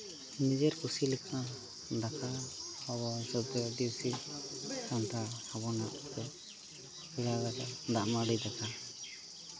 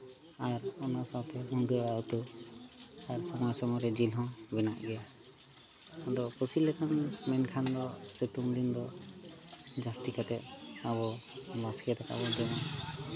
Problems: continuous background conversations